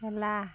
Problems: constant background noise